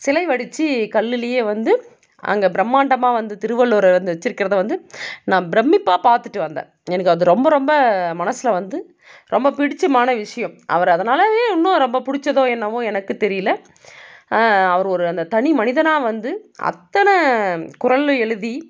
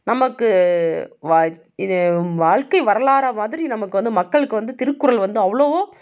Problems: none marked